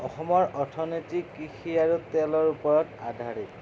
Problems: constant background noise